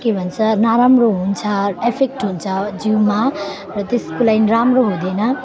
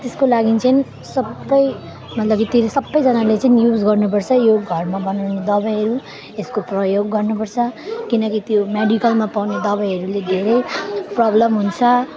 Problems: continuous background conversations